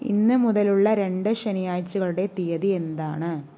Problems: none marked